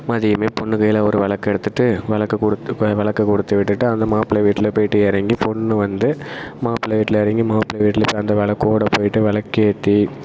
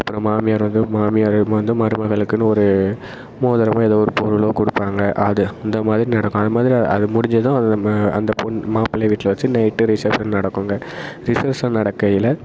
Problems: constant background noise